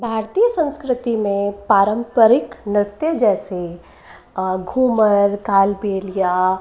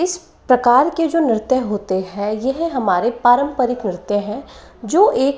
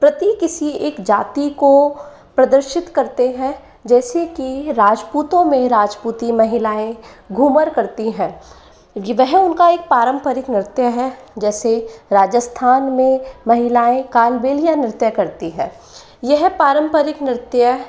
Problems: continuous background conversations